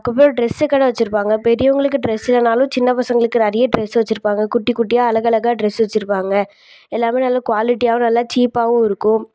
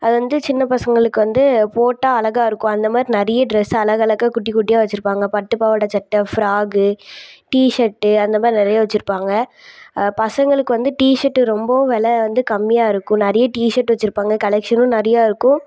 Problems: background sounds at intervals